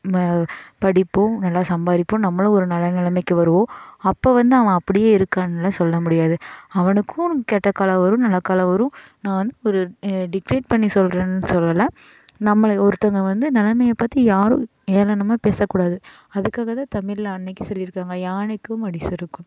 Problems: none marked